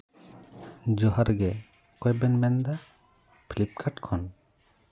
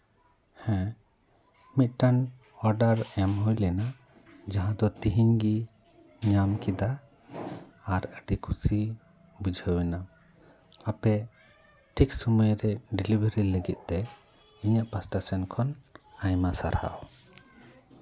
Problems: none marked